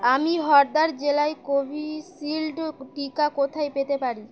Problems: constant background noise